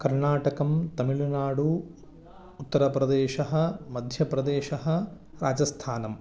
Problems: background conversations at intervals